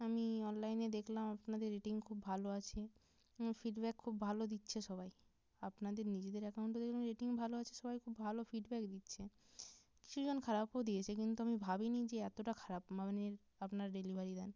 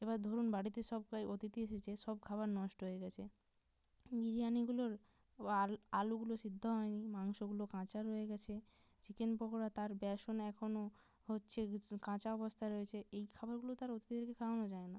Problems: low volume